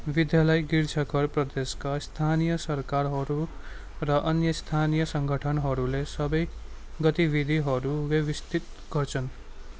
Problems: constant background noise